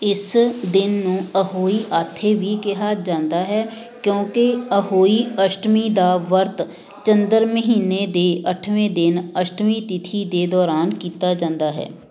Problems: background sounds at intervals, background conversations at intervals